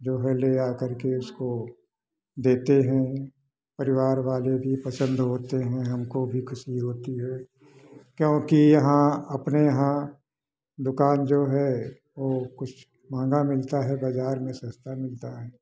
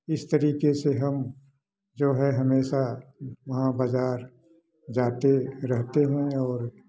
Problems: background sounds at intervals, background conversations at intervals